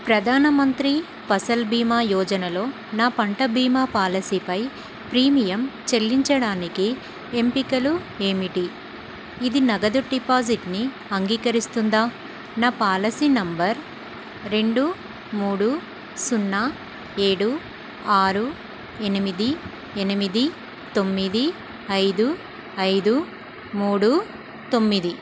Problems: constant background noise